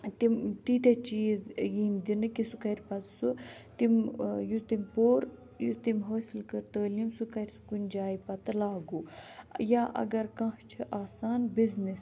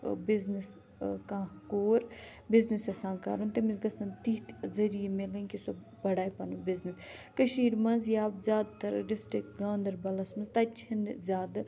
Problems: none marked